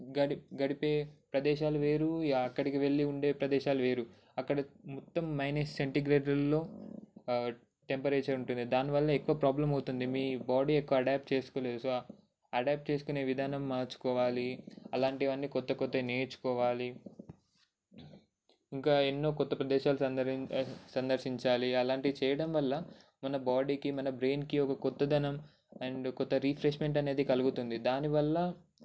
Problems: none marked